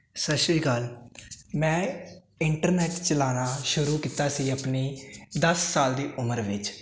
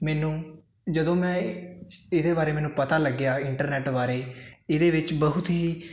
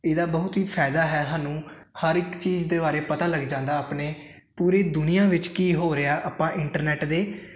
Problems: constant background noise